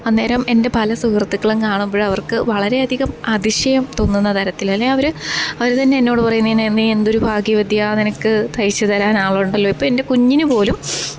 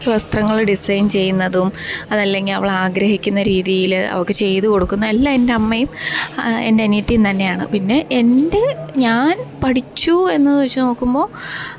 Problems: constant background noise